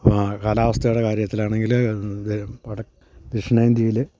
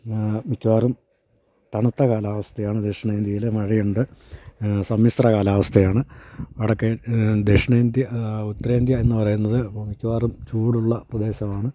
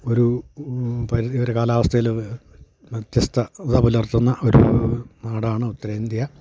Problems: none marked